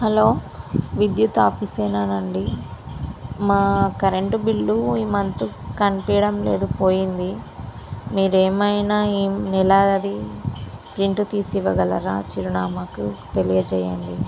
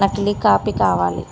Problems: constant background noise